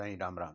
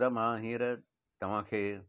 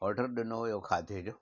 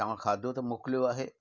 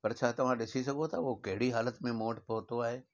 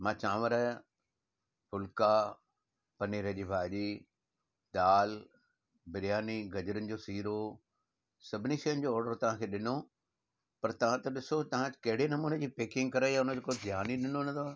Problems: none marked